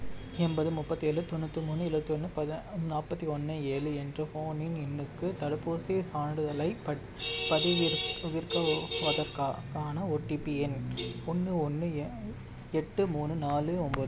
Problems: constant background noise